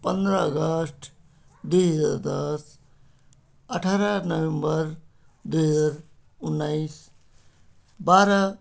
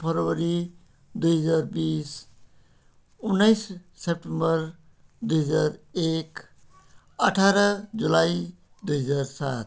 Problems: background sounds at intervals